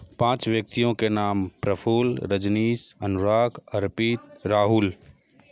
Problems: none marked